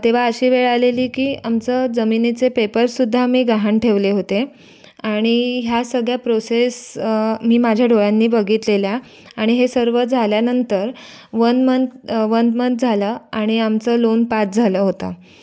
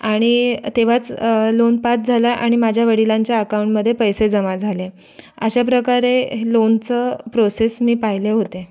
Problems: none marked